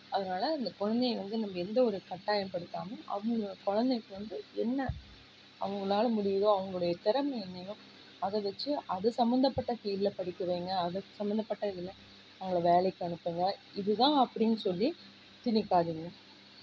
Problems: low volume